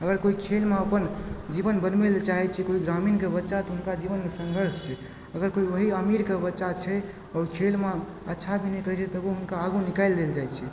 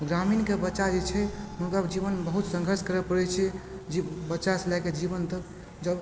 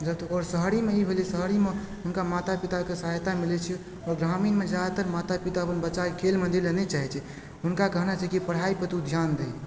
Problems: background sounds at intervals